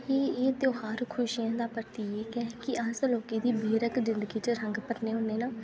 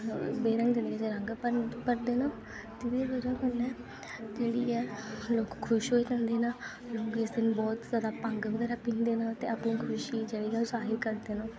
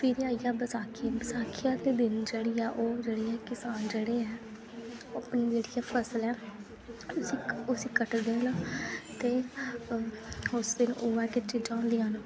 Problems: constant background noise, low volume